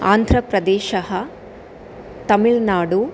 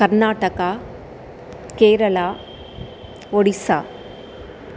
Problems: constant background noise